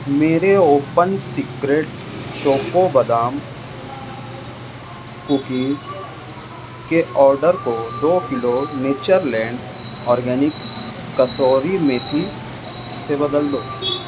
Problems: constant background noise, background conversations at intervals